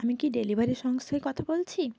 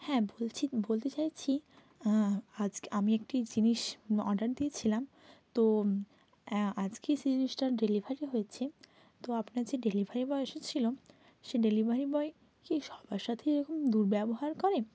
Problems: constant background noise